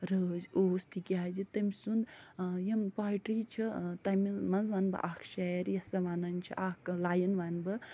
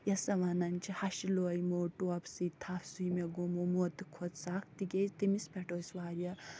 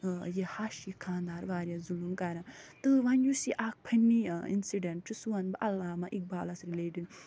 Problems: none marked